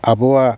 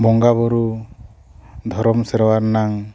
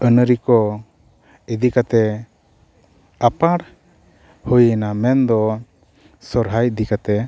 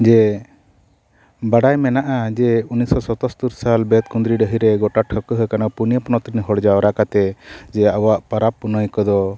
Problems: none marked